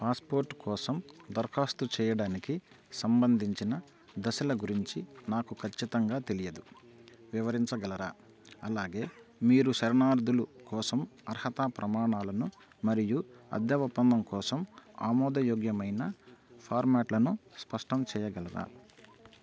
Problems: constant background noise